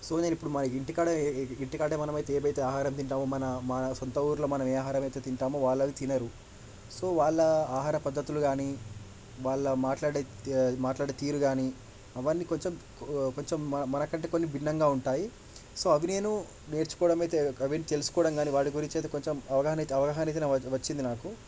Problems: none marked